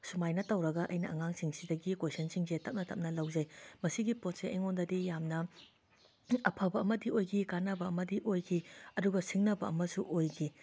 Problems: constant background noise